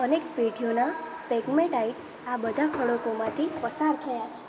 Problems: constant background noise, continuous background conversations